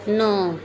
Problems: background conversations at intervals